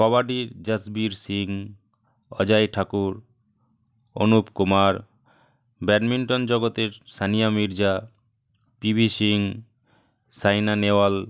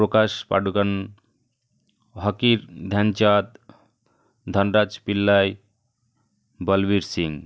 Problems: none marked